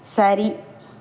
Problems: constant background noise